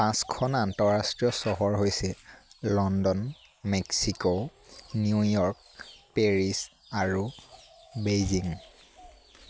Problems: constant background noise